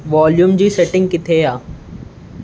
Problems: constant background noise